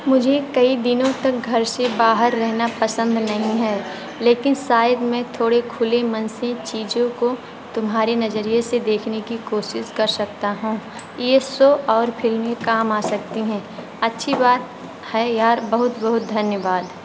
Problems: constant background noise